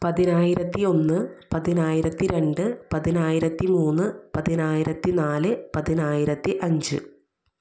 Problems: none marked